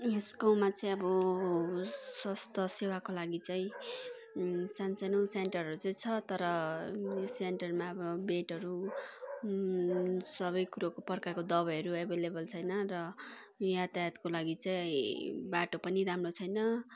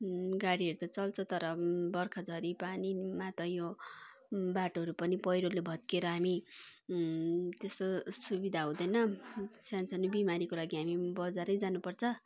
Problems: constant background noise, continuous background conversations